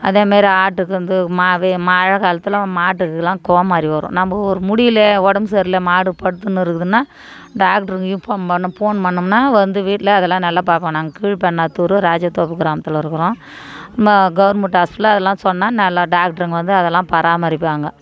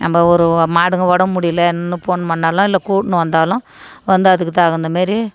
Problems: none marked